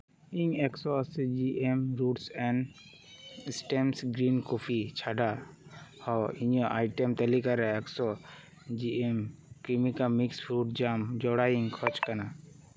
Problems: none marked